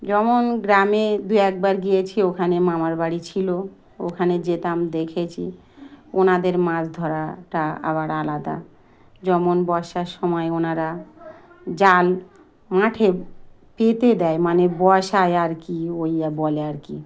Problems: none marked